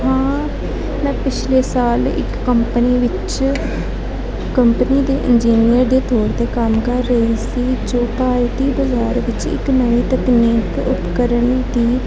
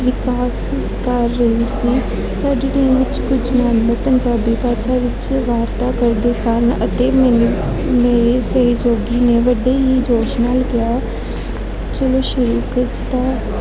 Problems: constant background noise, continuous background conversations